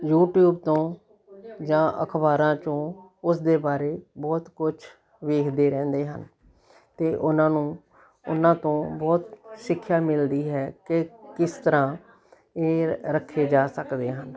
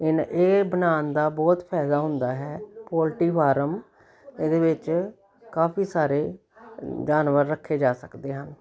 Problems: continuous background conversations